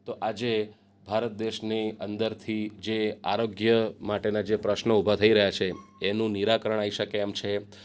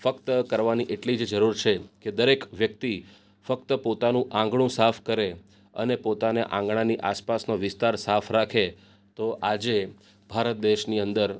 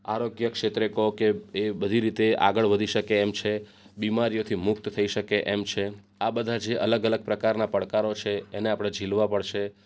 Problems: none marked